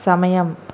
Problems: constant background noise